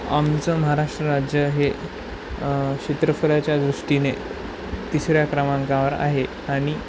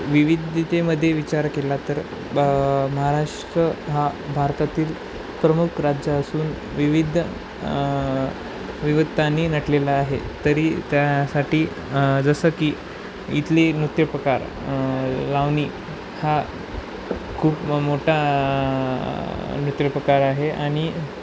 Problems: none marked